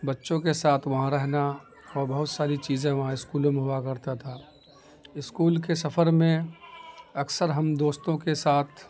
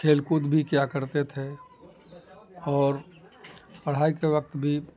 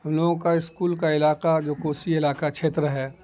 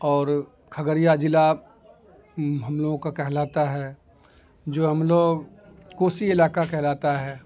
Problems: constant background noise